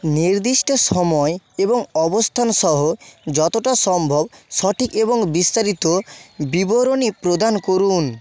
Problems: background sounds at intervals